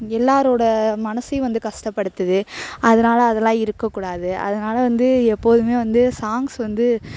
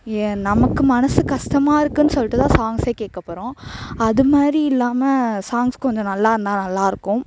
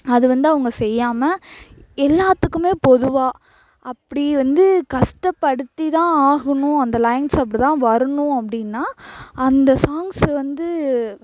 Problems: constant background noise